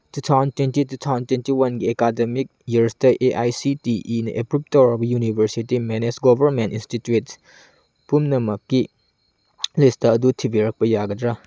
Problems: background sounds at intervals